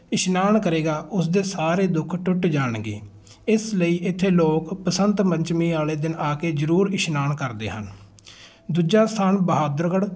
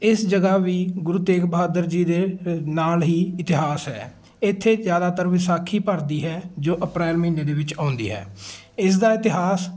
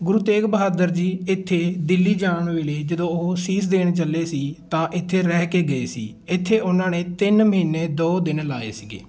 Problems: background sounds at intervals, continuous background conversations